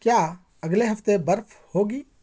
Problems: none marked